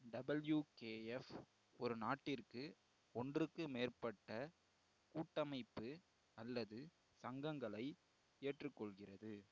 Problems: low volume